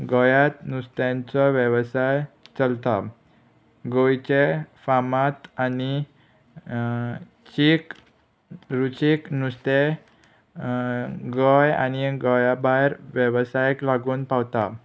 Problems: none marked